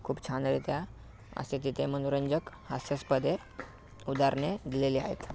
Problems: background sounds at intervals, background conversations at intervals